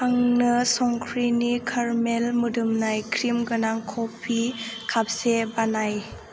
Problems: none marked